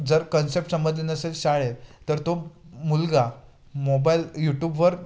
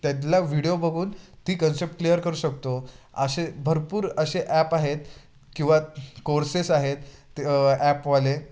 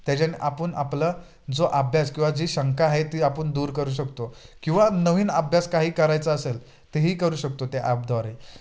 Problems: constant background noise, background conversations at intervals